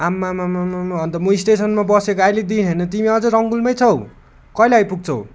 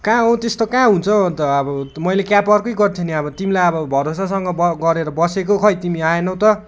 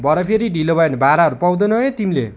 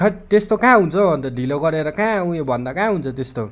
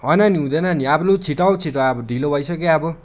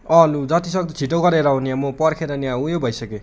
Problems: constant background noise